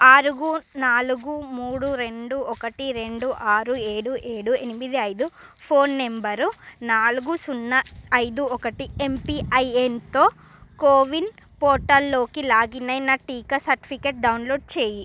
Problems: none marked